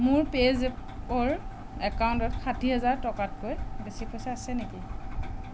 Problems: constant background noise